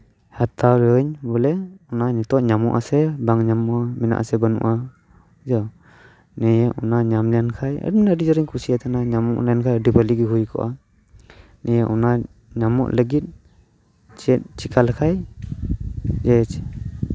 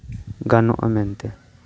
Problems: none marked